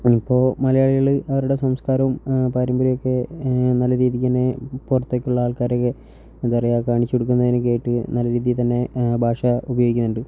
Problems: low volume